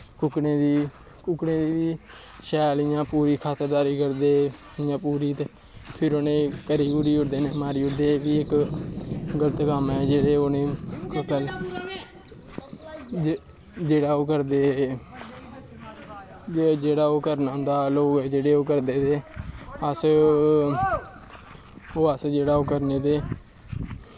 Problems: constant background noise, low volume